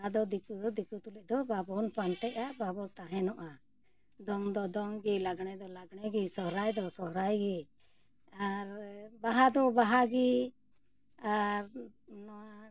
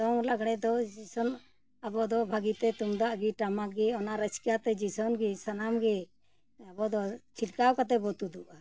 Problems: none marked